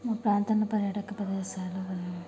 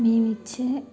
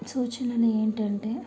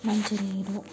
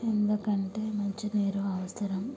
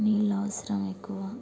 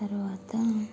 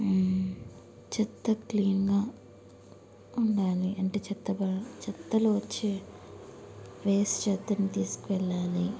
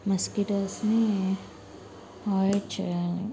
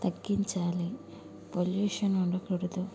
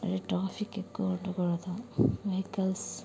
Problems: background sounds at intervals